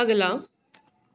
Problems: none marked